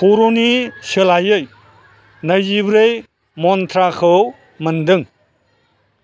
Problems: constant background noise